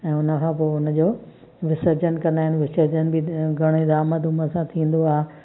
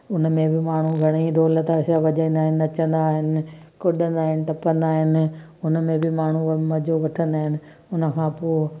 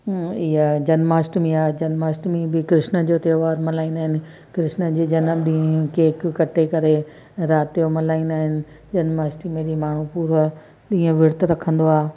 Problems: constant background noise, echo